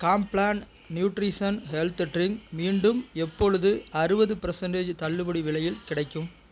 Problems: constant background noise